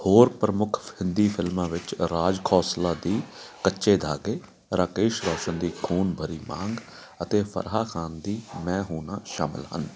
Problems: none marked